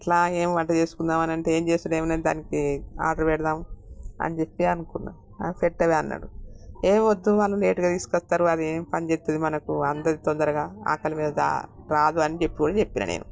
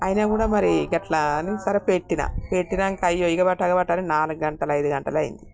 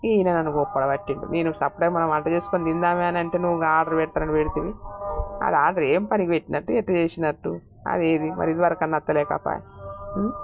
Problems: none marked